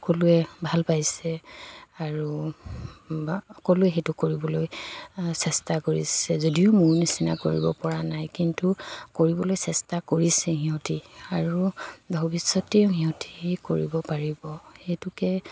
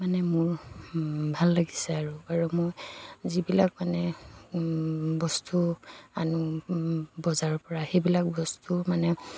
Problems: background sounds at intervals